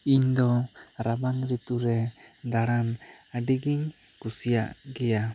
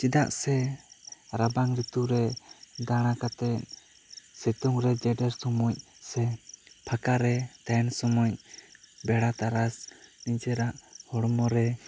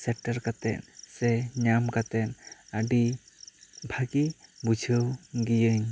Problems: constant background noise